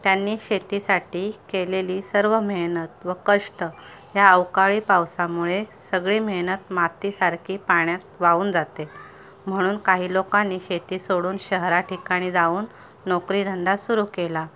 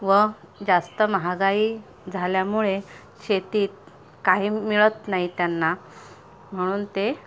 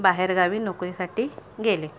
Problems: background sounds at intervals, background conversations at intervals